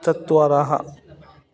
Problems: continuous background conversations